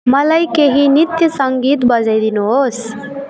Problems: continuous background conversations